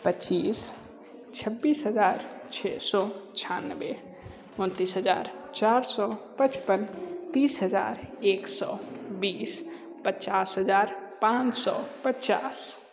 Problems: none marked